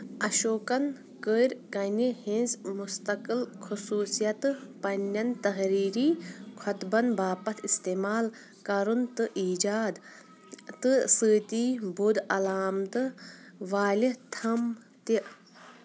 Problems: constant background noise